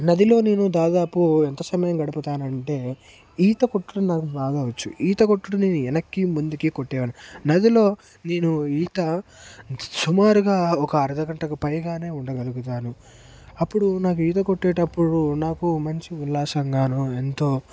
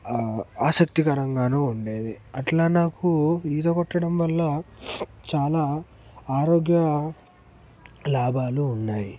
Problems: constant background noise, background conversations at intervals